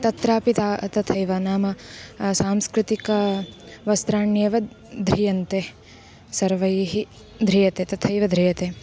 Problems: background sounds at intervals